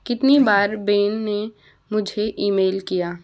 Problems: none marked